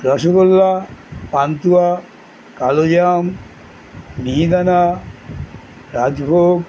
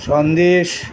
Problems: none marked